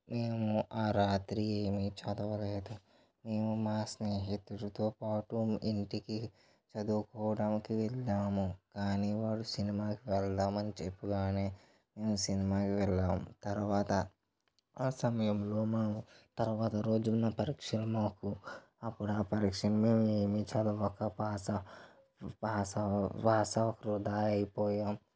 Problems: low volume